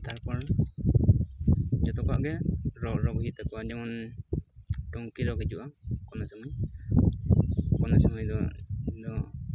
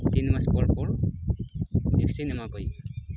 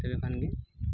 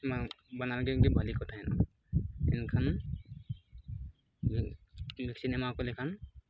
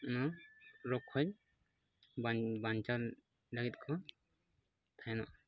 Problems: constant background noise